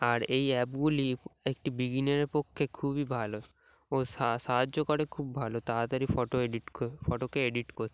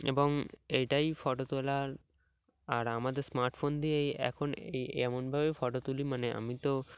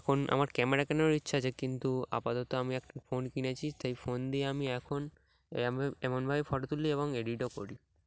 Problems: background sounds at intervals